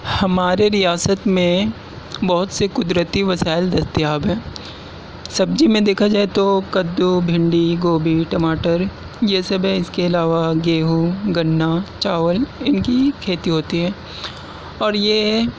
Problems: constant background noise